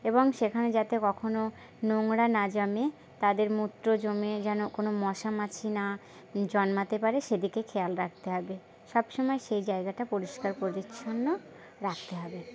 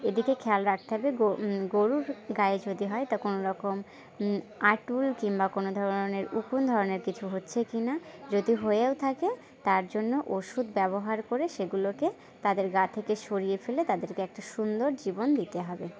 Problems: background sounds at intervals, continuous background conversations